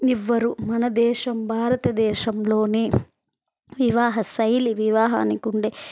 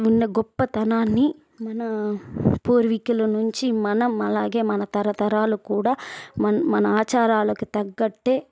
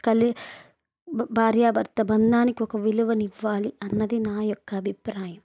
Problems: background sounds at intervals